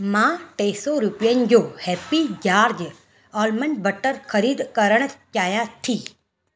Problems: constant background noise